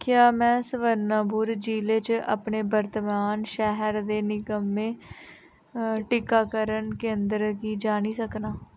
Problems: none marked